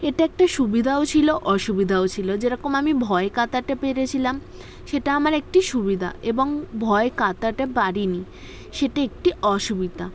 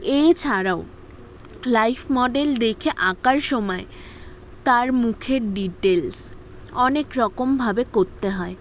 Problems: background sounds at intervals